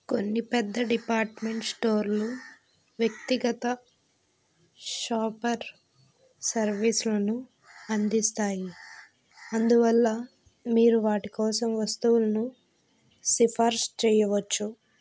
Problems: background sounds at intervals